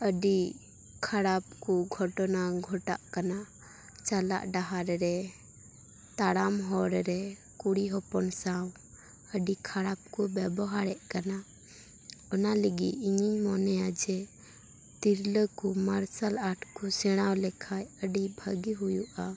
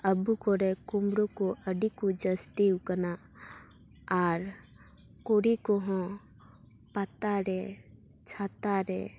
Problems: none marked